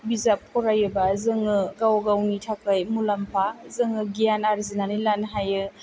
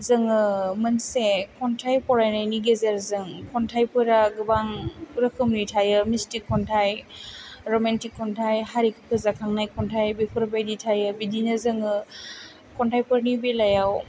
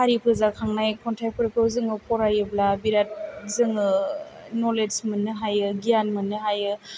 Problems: low volume